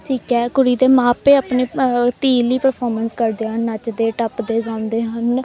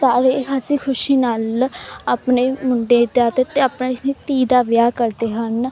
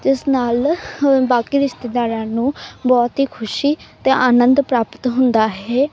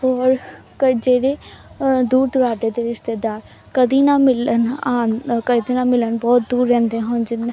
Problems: background sounds at intervals, continuous background conversations